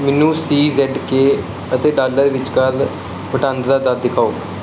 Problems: none marked